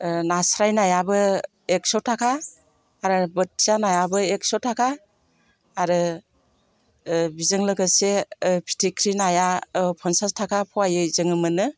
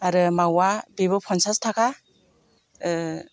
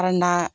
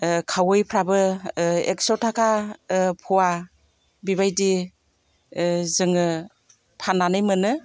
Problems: constant background noise